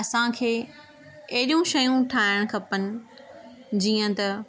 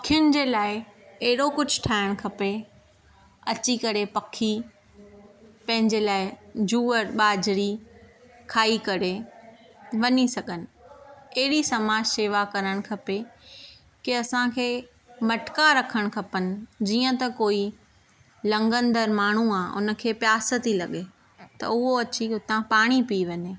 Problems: constant background noise